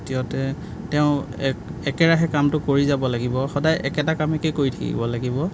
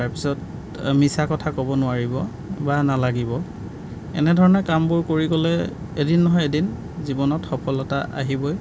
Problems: background sounds at intervals